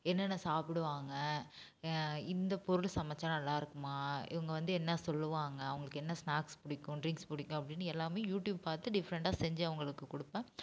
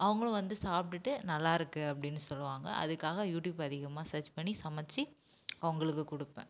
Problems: background sounds at intervals, low volume